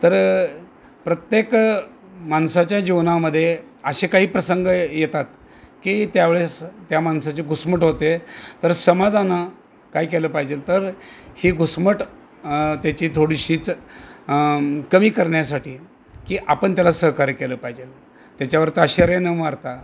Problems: constant background noise